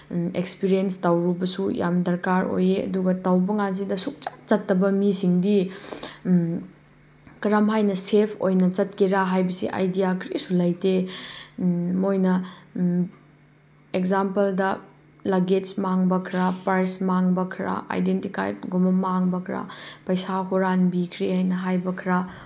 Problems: none marked